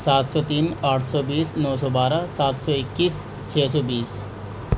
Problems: constant background noise